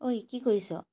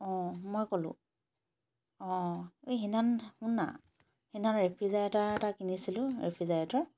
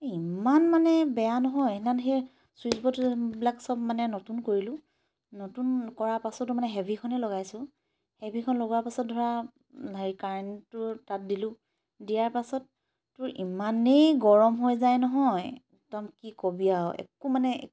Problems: background sounds at intervals